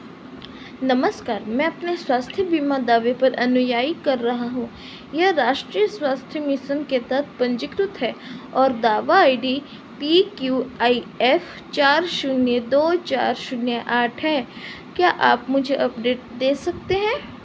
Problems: constant background noise